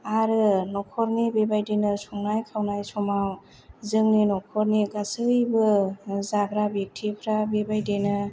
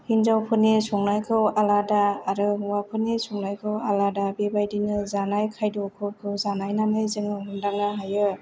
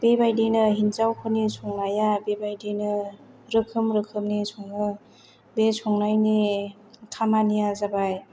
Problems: none marked